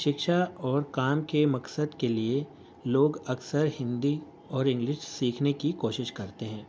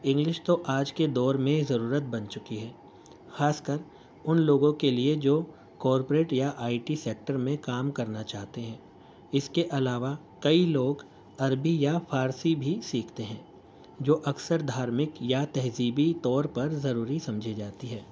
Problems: constant background noise